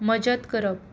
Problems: background sounds at intervals